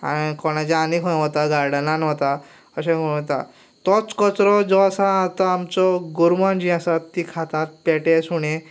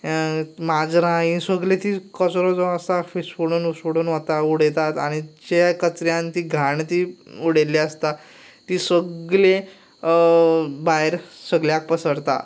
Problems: background sounds at intervals